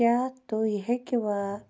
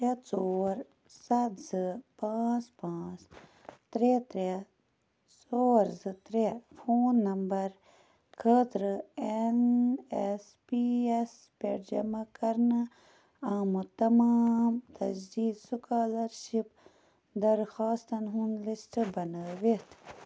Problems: background sounds at intervals